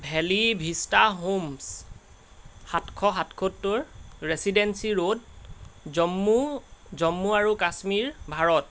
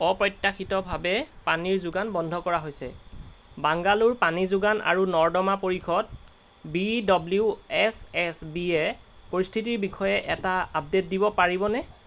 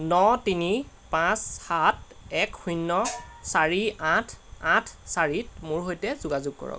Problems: none marked